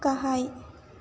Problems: constant background noise